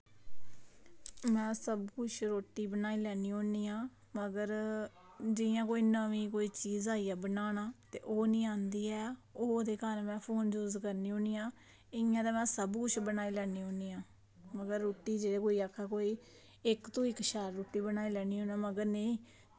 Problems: none marked